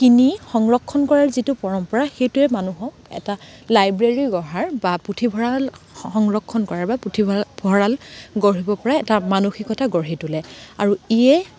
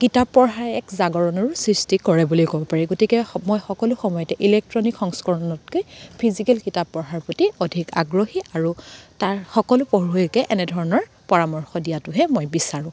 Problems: constant background noise